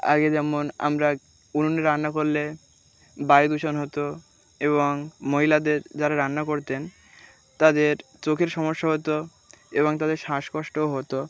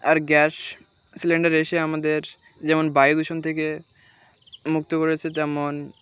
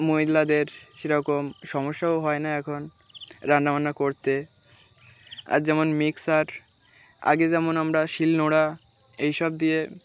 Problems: background sounds at intervals